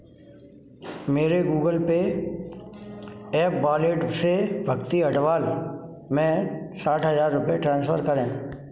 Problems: none marked